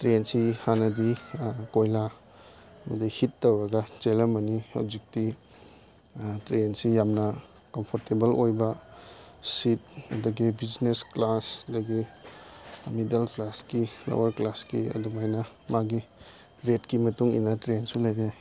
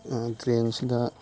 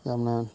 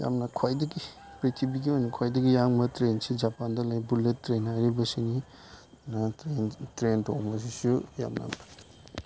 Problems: background sounds at intervals